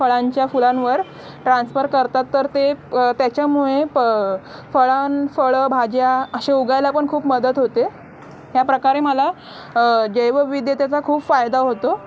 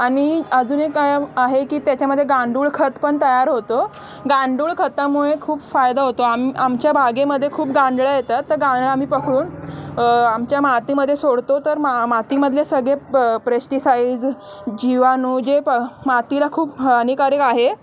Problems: none marked